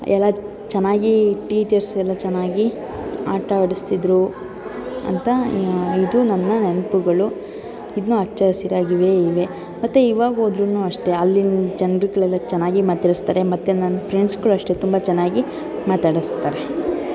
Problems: constant background noise, continuous background conversations